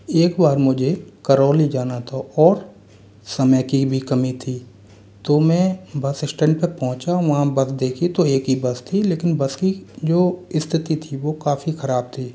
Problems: constant background noise